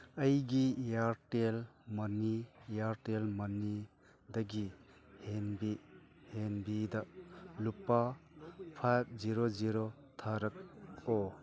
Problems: constant background noise